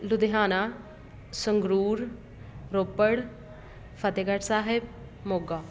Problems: constant background noise